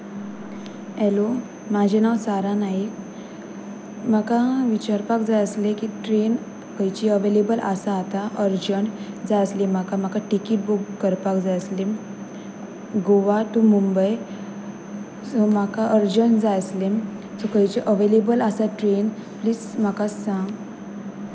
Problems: none marked